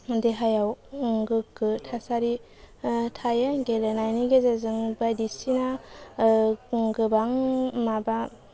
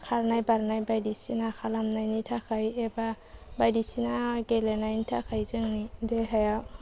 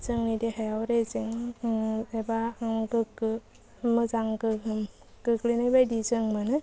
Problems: low volume